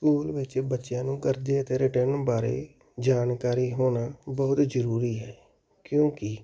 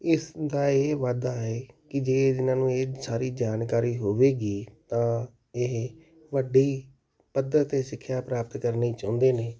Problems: background sounds at intervals